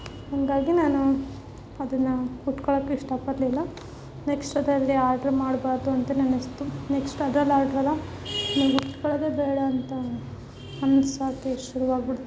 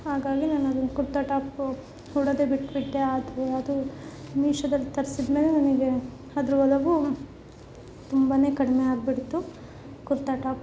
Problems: background sounds at intervals